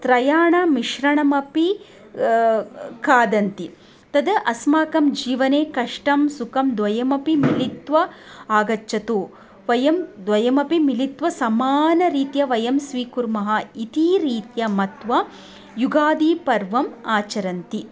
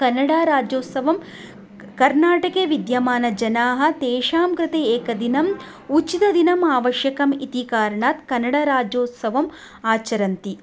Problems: none marked